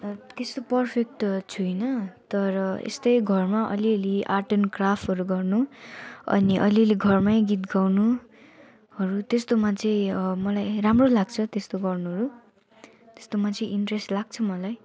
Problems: background conversations at intervals